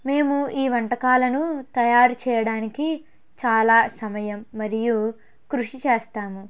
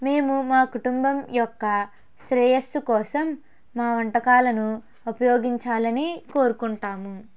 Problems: background sounds at intervals